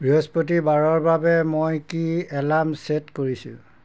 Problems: constant background noise